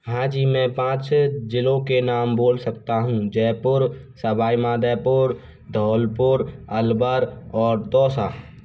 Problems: background sounds at intervals